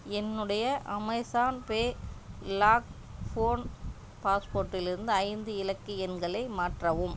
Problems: low volume